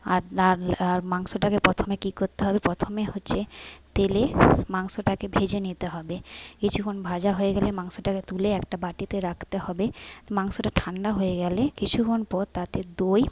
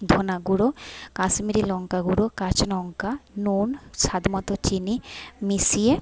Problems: background sounds at intervals